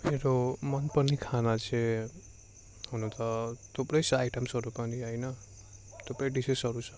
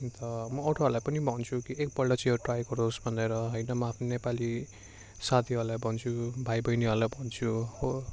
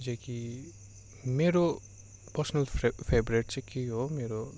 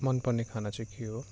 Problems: constant background noise